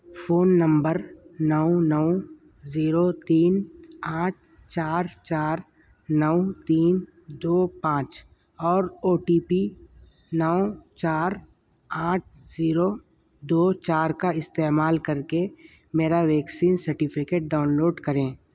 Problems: constant background noise